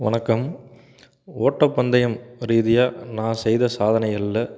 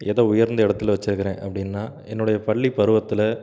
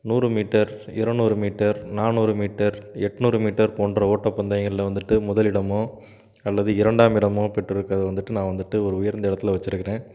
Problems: background sounds at intervals